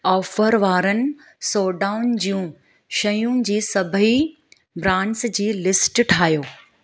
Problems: background sounds at intervals